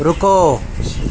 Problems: constant background noise